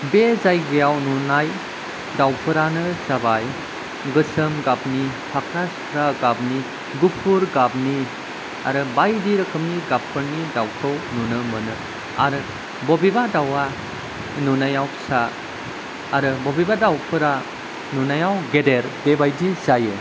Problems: constant background noise